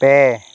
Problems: constant background noise